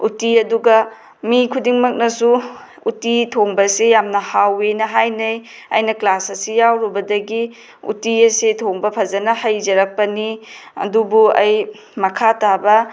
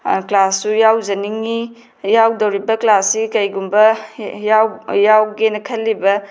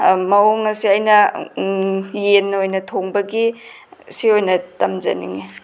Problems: none marked